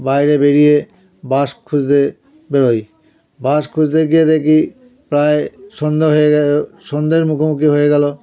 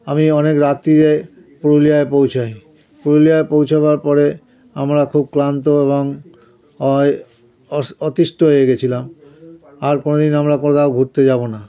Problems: continuous background conversations